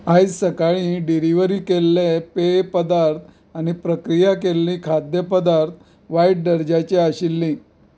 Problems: background sounds at intervals